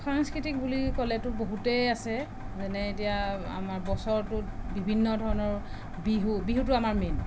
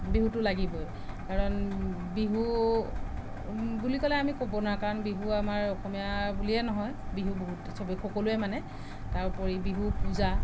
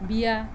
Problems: none marked